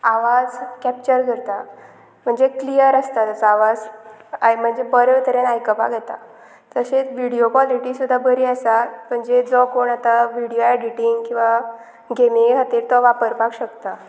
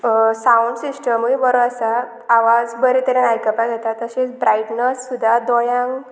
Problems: constant background noise